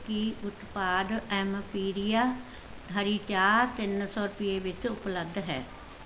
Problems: constant background noise